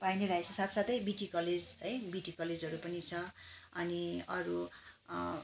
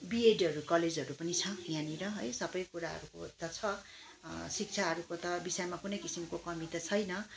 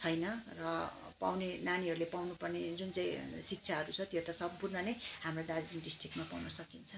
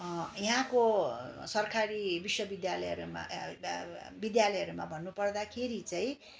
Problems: none marked